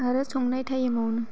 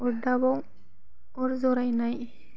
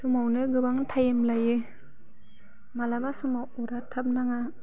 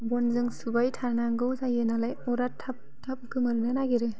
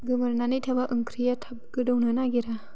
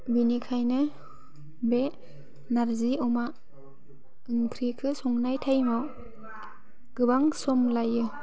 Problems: none marked